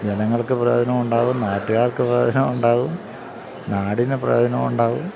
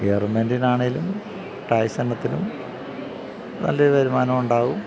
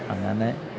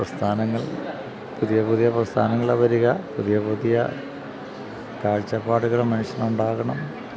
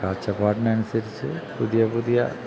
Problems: none marked